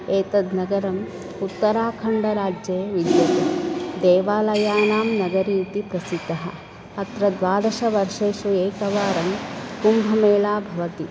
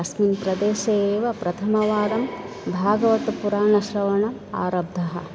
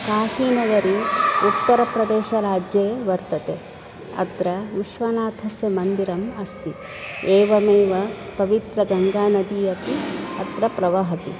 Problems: constant background noise